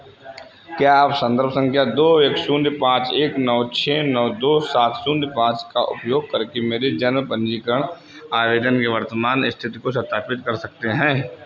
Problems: constant background noise